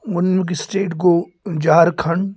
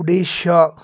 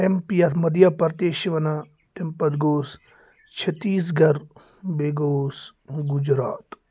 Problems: constant background noise